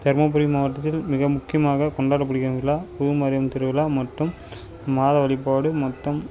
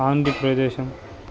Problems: background sounds at intervals